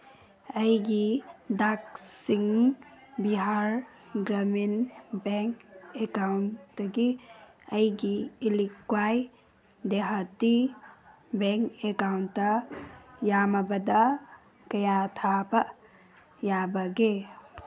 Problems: background sounds at intervals